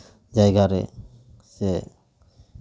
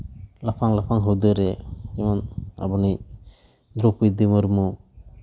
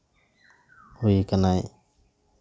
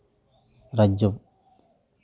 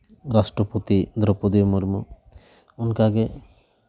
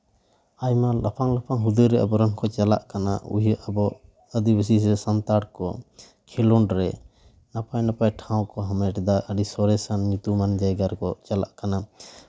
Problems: background sounds at intervals